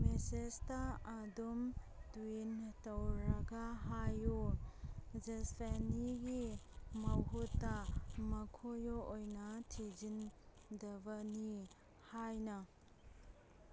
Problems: background sounds at intervals